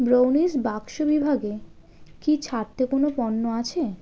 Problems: constant background noise